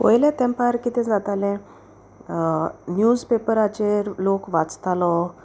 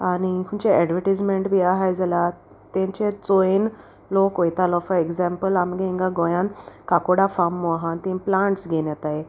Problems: none marked